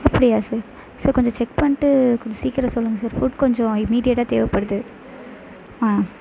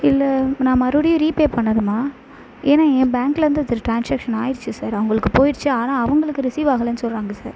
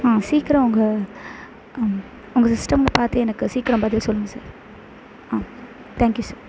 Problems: constant background noise